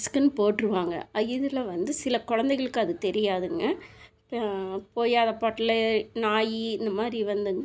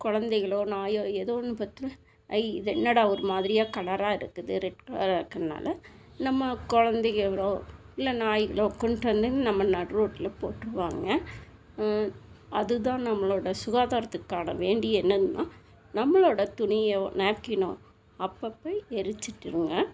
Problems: constant background noise